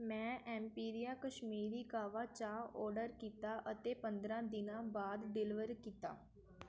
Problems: background sounds at intervals, background conversations at intervals